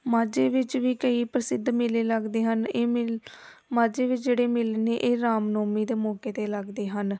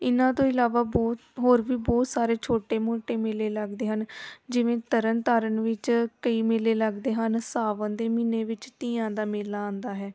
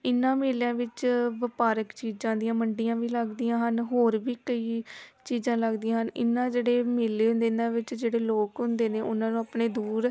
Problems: background sounds at intervals, background conversations at intervals